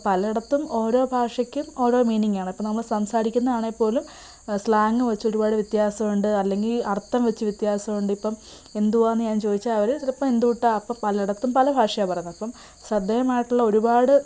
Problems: background sounds at intervals